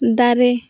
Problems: constant background noise